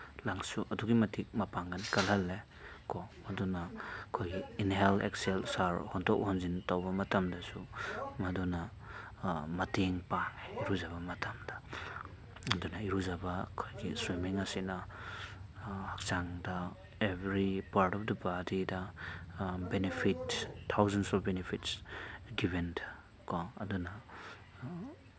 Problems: none marked